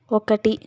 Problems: none marked